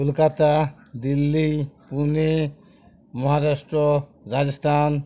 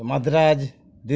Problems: continuous background conversations